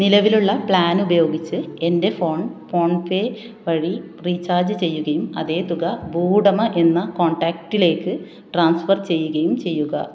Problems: none marked